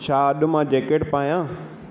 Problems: constant background noise, echo